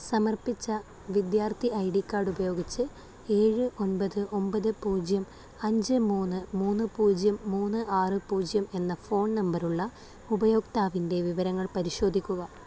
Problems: constant background noise